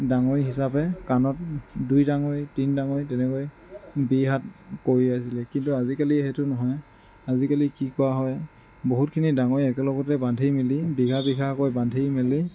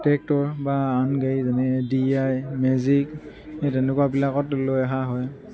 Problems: constant background noise, background conversations at intervals